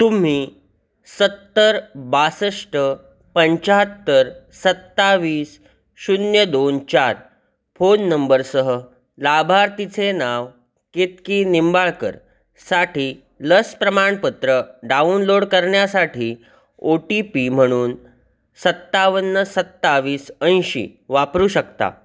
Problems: constant background noise, echo